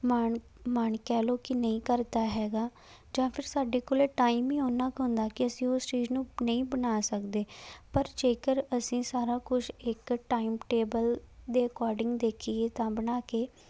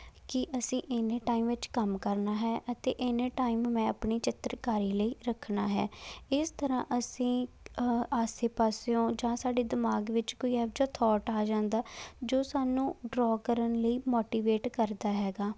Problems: none marked